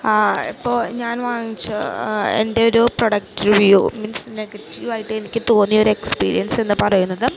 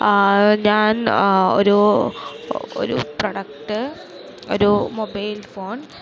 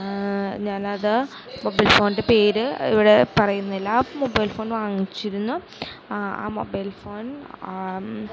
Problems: constant background noise, low volume